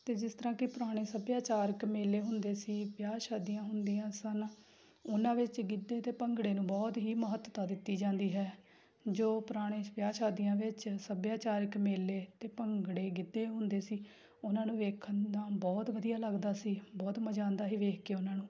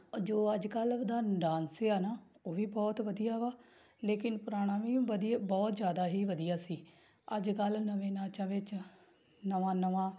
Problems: background sounds at intervals